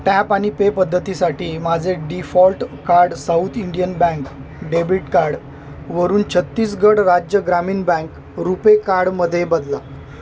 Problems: constant background noise